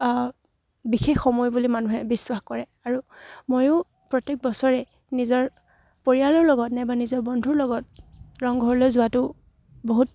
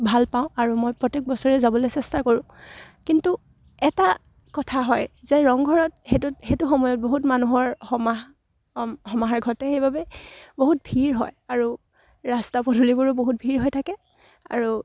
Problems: none marked